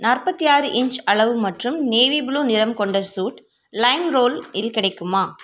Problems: constant background noise